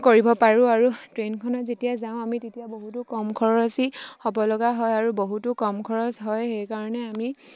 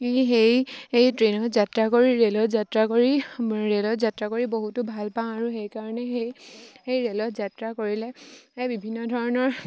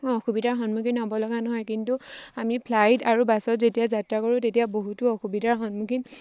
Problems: none marked